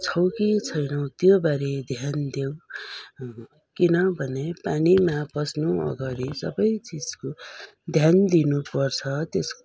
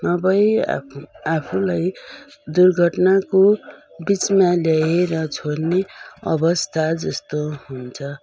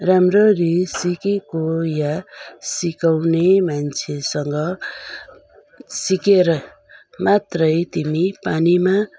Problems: none marked